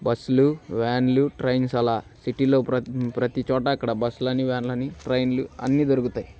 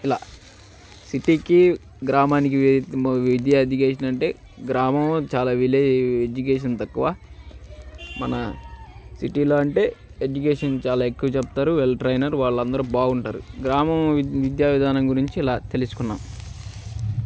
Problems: background sounds at intervals